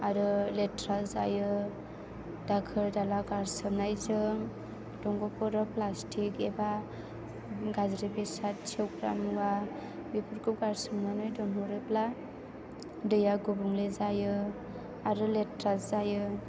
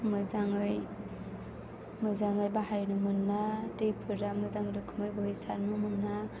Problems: background sounds at intervals